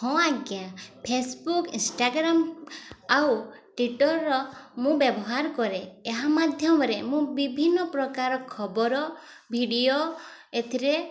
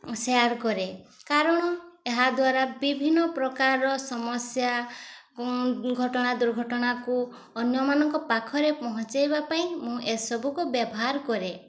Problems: constant background noise, continuous background conversations